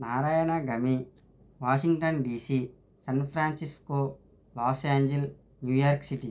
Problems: none marked